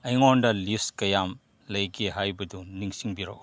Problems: background conversations at intervals